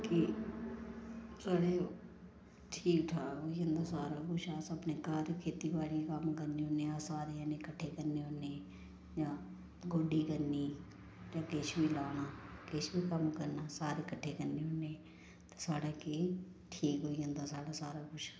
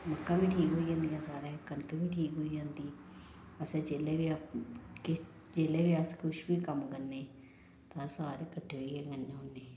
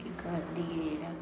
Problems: background sounds at intervals